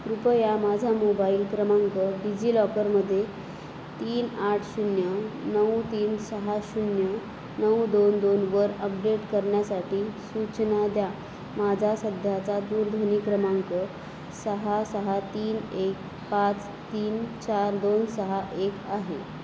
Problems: constant background noise